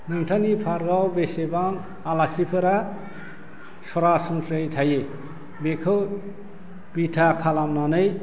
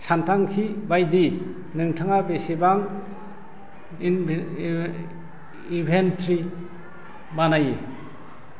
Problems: constant background noise